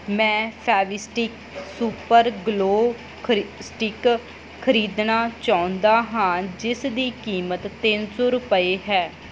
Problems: constant background noise